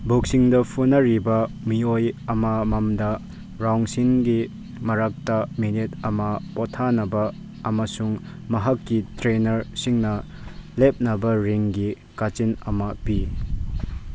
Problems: background sounds at intervals